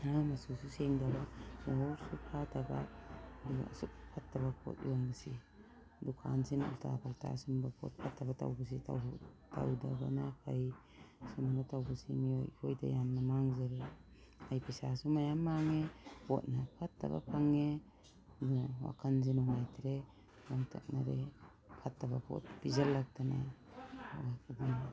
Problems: background sounds at intervals